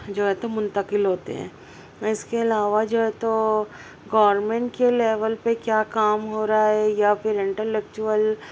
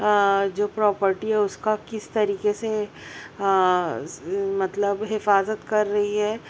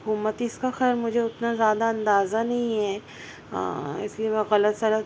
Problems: constant background noise